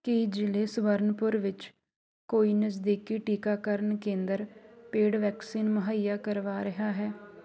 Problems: constant background noise